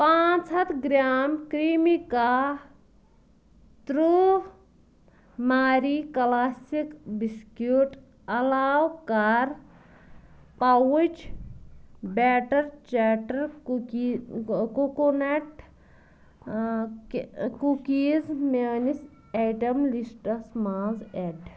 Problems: constant background noise